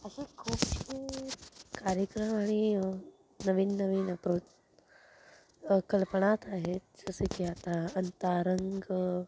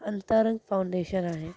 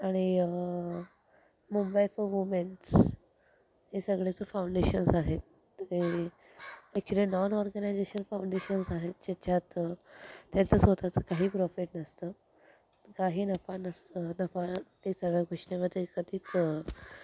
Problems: constant background noise, low volume